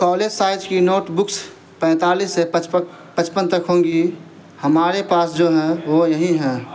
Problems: constant background noise